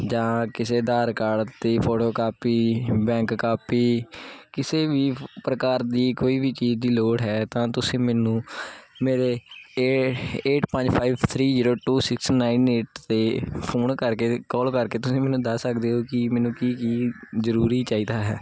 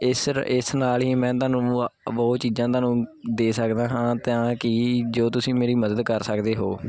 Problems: constant background noise